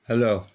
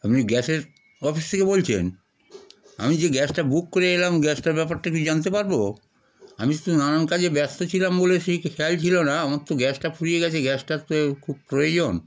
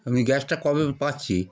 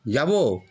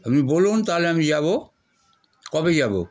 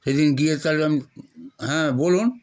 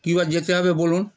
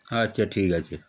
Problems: background sounds at intervals